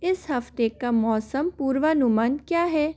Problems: constant background noise